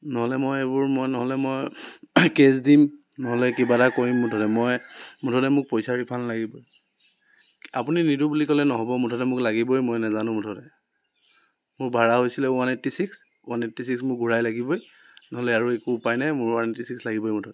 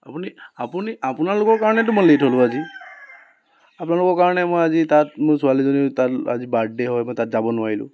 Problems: constant background noise